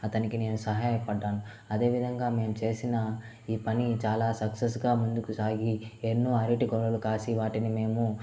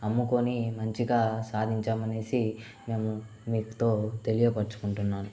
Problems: constant background noise